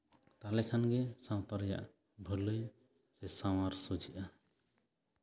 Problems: none marked